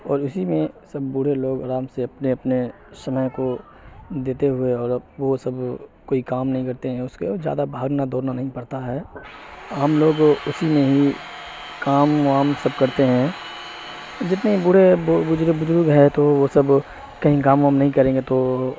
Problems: constant background noise